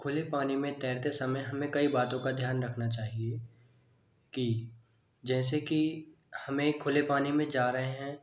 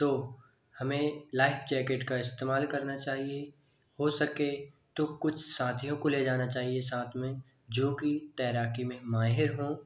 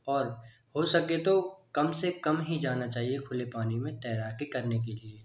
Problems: none marked